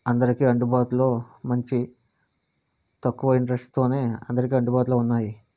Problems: constant background noise